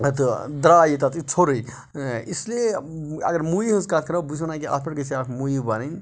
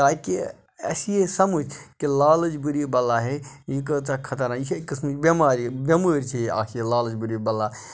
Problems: background sounds at intervals